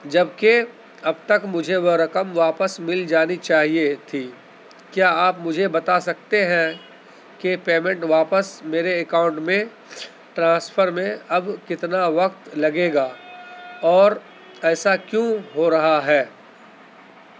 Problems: constant background noise, background conversations at intervals